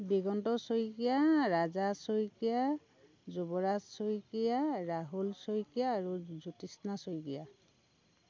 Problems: background sounds at intervals